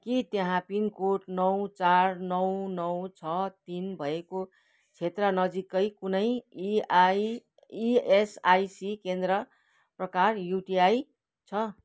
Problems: none marked